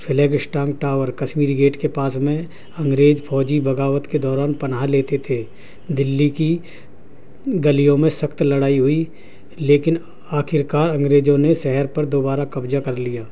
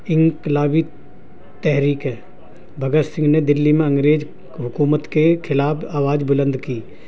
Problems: constant background noise, low volume